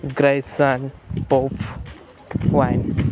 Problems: constant background noise, continuous background conversations